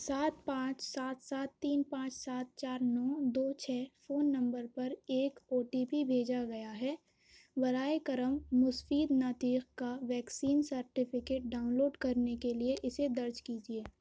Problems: none marked